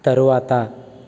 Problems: none marked